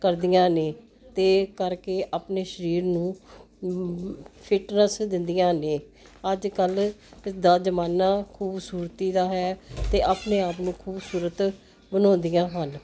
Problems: none marked